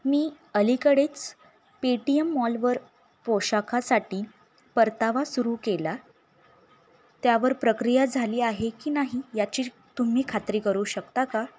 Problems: background sounds at intervals